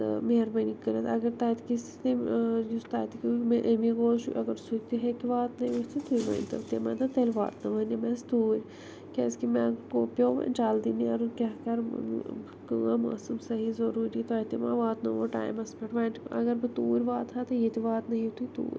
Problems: low volume